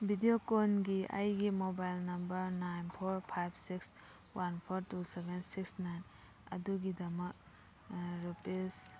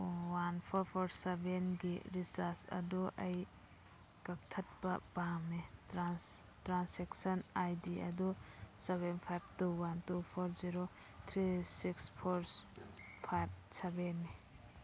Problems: background sounds at intervals